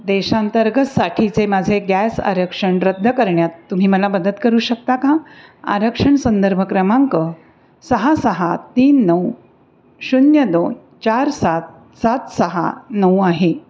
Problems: none marked